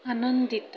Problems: constant background noise